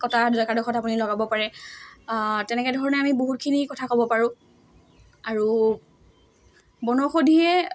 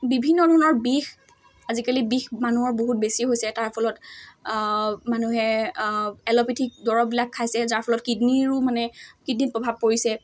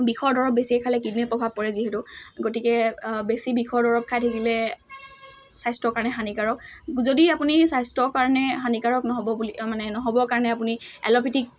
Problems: constant background noise